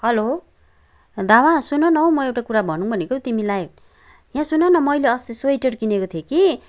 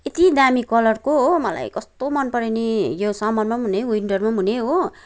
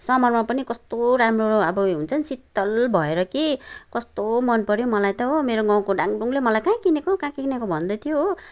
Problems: background sounds at intervals